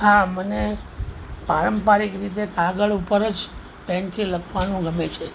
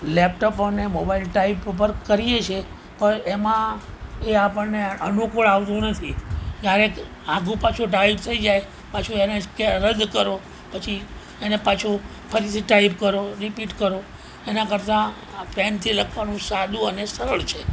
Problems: none marked